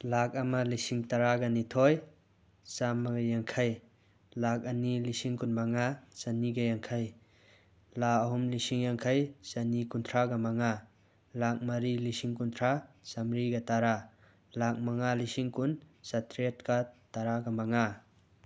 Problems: none marked